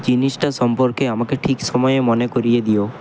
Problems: none marked